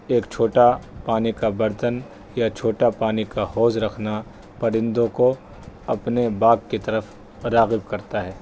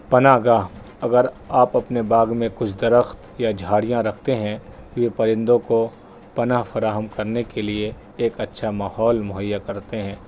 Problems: constant background noise